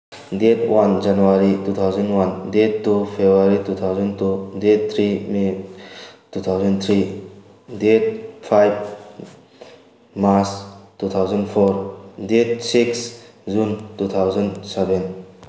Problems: background sounds at intervals